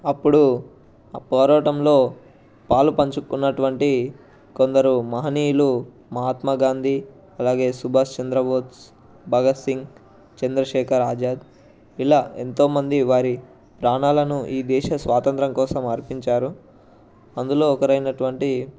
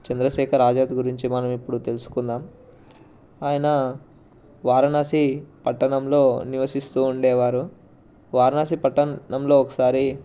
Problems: background sounds at intervals, background conversations at intervals